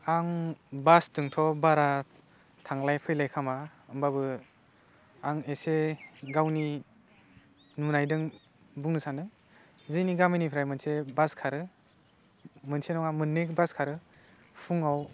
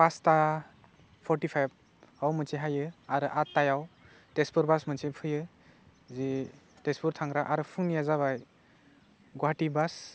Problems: low volume